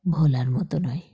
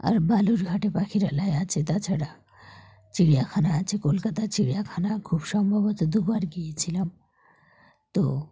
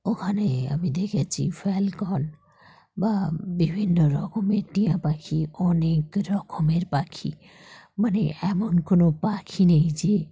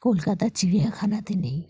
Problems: background sounds at intervals